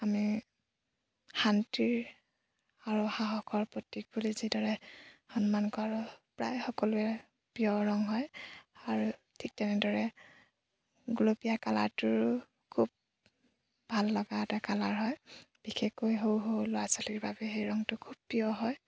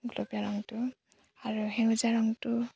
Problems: background sounds at intervals